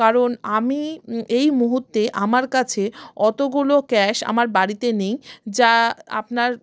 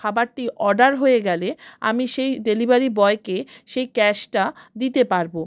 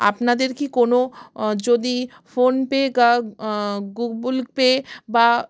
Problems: background sounds at intervals